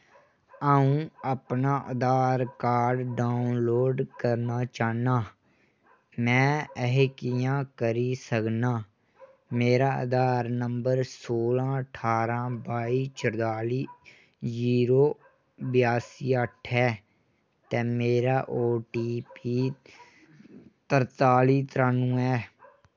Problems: none marked